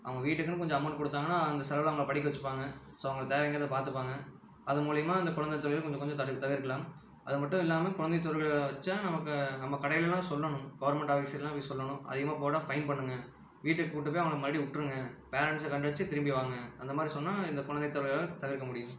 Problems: low volume